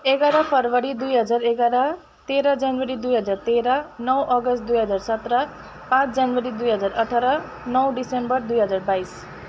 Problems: constant background noise